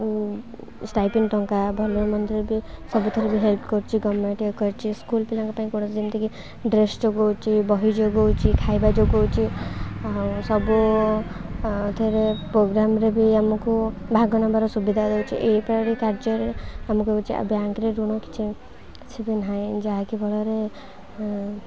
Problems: constant background noise, continuous background conversations